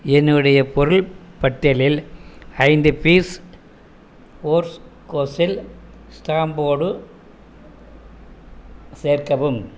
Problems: none marked